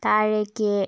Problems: none marked